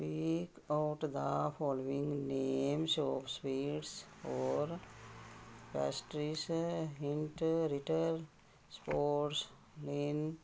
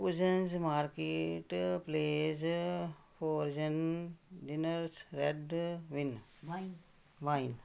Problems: continuous background conversations